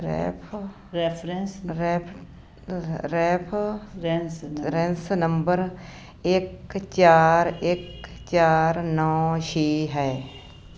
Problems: background conversations at intervals